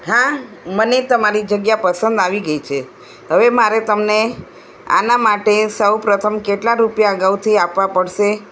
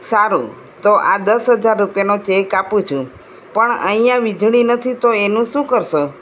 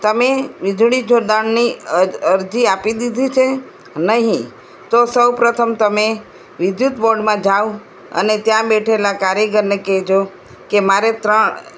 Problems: none marked